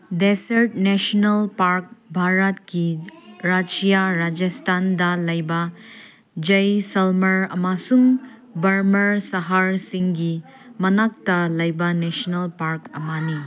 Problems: constant background noise